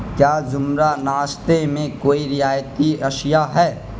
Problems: constant background noise